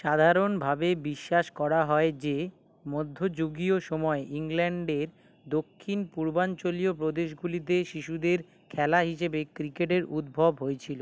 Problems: constant background noise